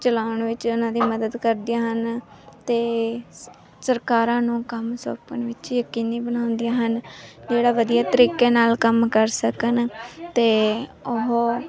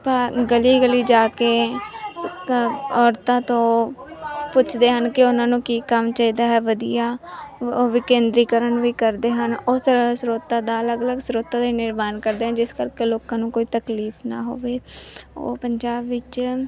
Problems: background sounds at intervals, background conversations at intervals